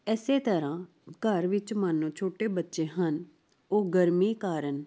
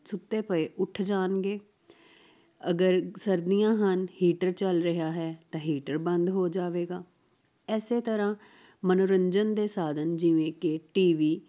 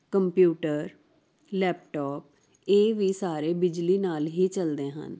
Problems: constant background noise